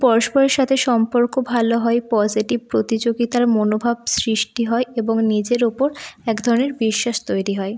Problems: low volume